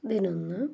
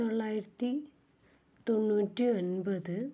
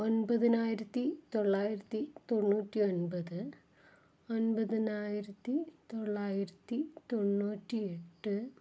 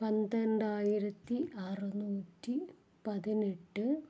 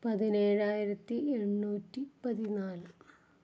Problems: low volume